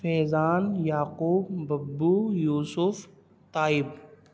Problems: none marked